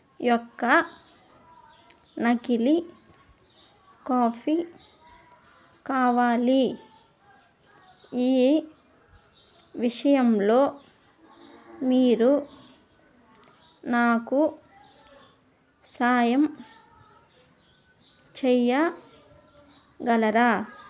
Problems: constant background noise